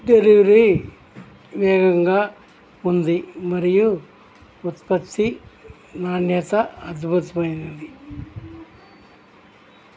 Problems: background sounds at intervals, background conversations at intervals